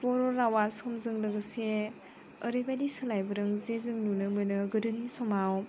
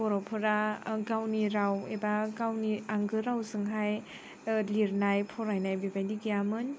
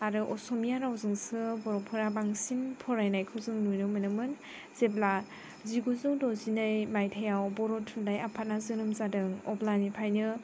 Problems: background conversations at intervals